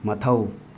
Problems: constant background noise